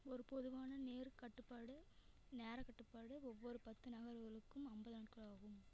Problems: none marked